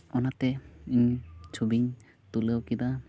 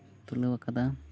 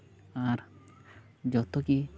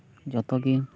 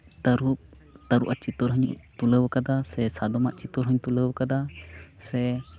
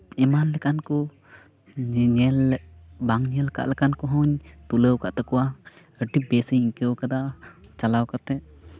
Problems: background conversations at intervals